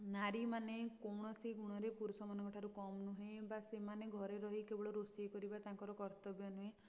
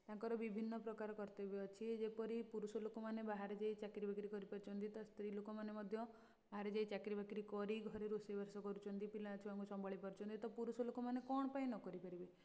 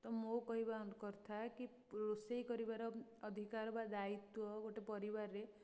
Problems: low volume